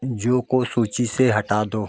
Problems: constant background noise